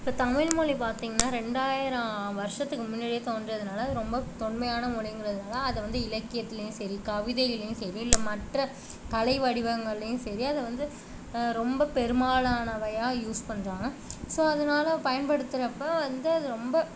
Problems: constant background noise